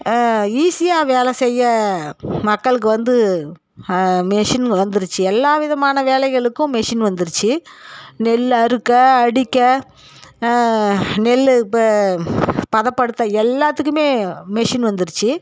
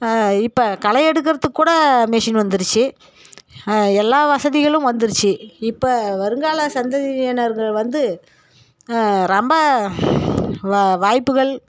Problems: none marked